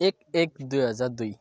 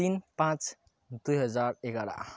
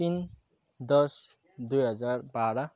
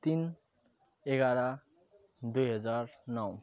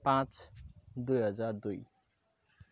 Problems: none marked